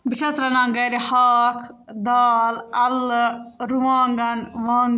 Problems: none marked